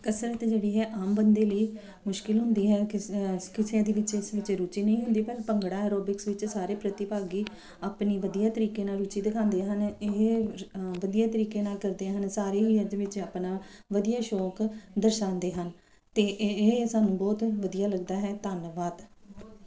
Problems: background sounds at intervals